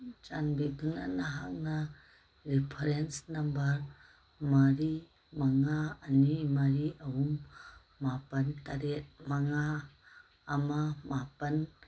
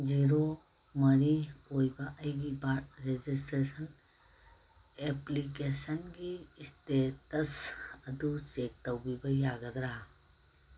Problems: none marked